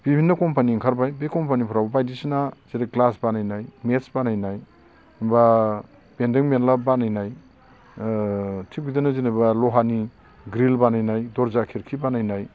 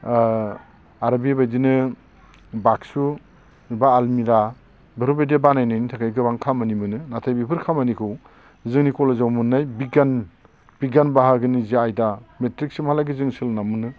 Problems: constant background noise